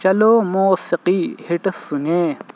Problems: constant background noise